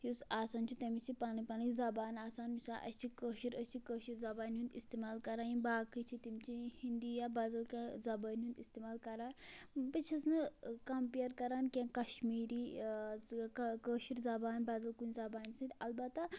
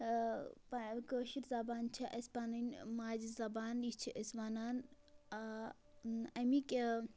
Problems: constant background noise